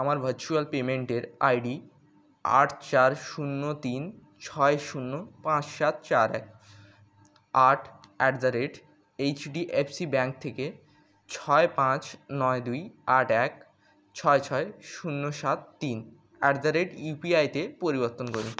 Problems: constant background noise